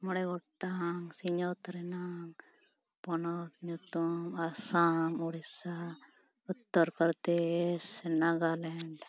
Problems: background sounds at intervals